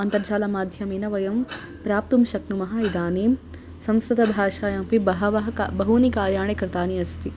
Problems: constant background noise